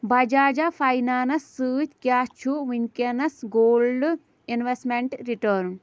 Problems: background sounds at intervals